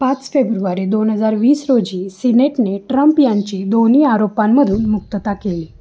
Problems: background sounds at intervals